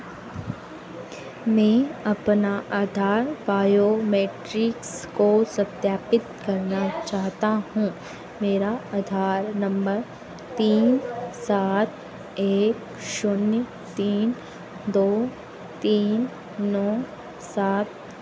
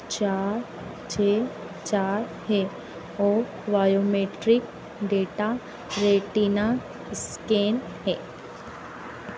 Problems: none marked